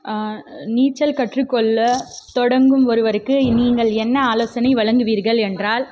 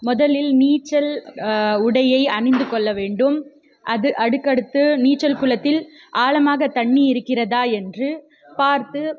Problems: background sounds at intervals